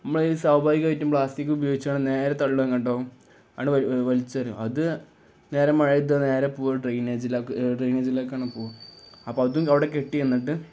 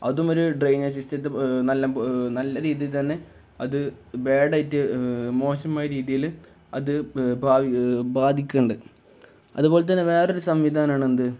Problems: none marked